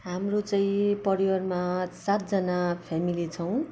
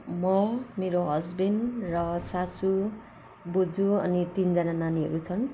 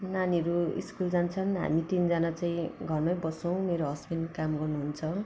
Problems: background sounds at intervals